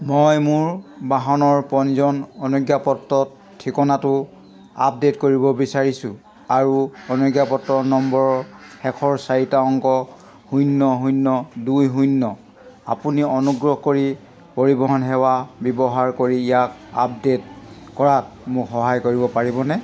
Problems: none marked